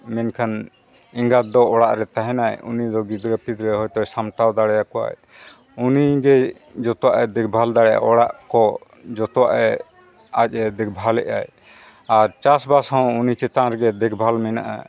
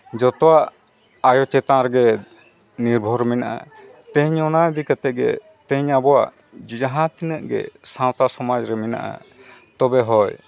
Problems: background sounds at intervals, background conversations at intervals